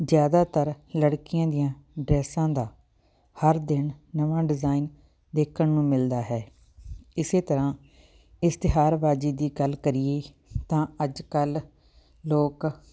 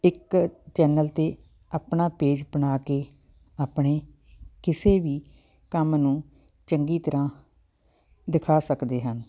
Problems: background sounds at intervals